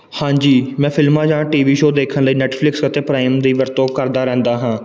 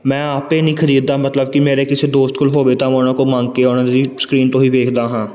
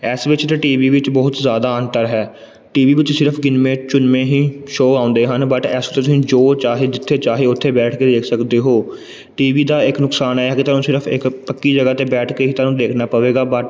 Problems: background sounds at intervals